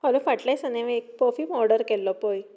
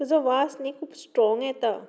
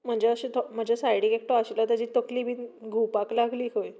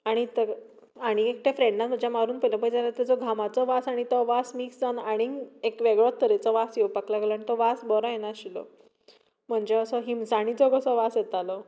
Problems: background sounds at intervals